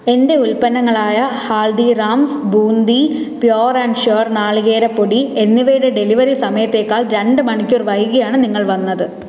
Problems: echo